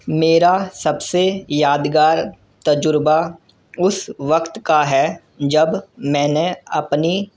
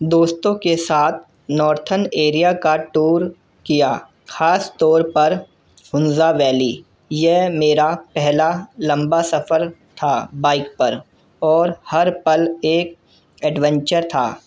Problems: none marked